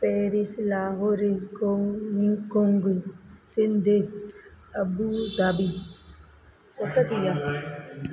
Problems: constant background noise, background conversations at intervals, echo